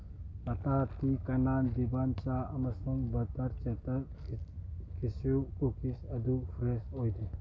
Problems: low volume